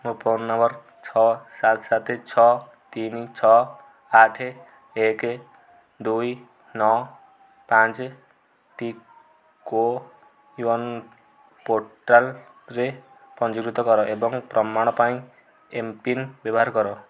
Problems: low volume